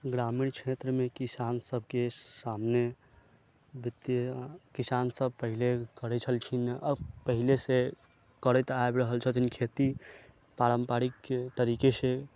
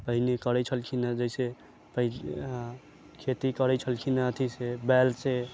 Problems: background sounds at intervals, low volume